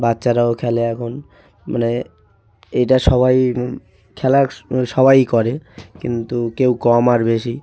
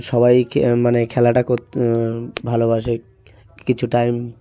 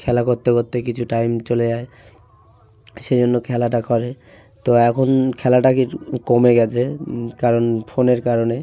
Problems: background sounds at intervals